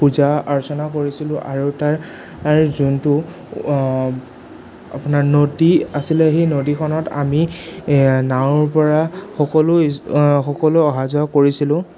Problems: none marked